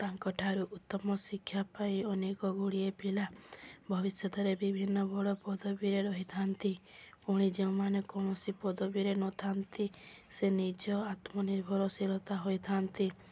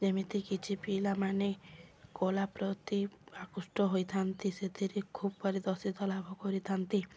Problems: background sounds at intervals